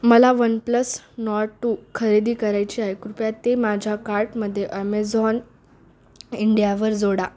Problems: background sounds at intervals